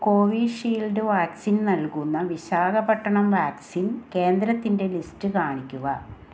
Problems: none marked